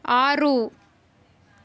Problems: none marked